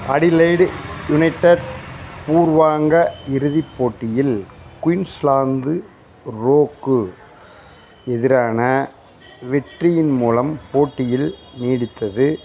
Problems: constant background noise, background conversations at intervals